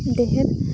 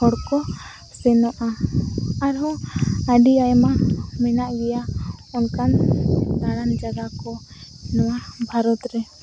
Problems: constant background noise